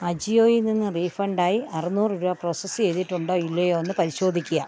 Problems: background sounds at intervals, background conversations at intervals